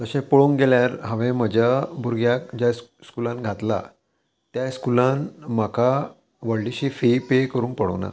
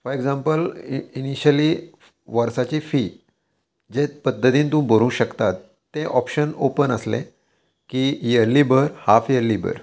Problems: constant background noise